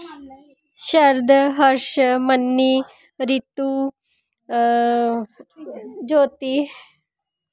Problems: background sounds at intervals